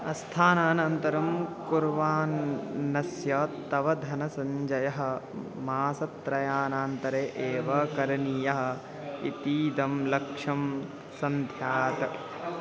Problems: constant background noise